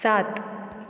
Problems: none marked